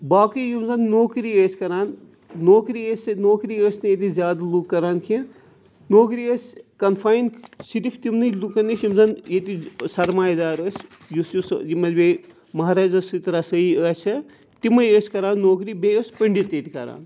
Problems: background sounds at intervals